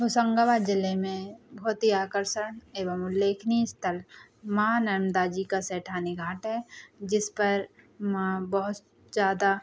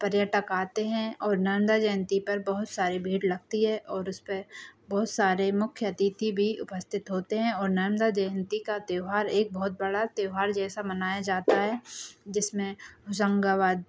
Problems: background sounds at intervals